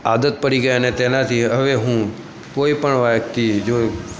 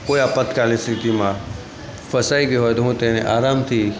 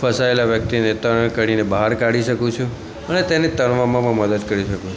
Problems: constant background noise